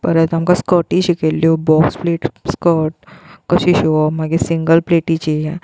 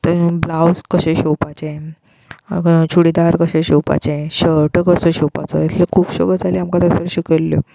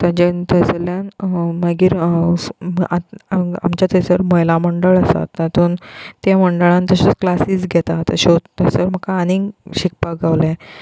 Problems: constant background noise